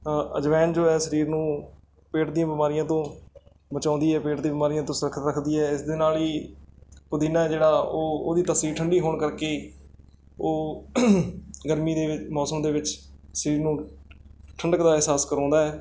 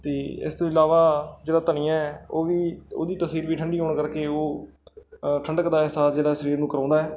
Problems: background sounds at intervals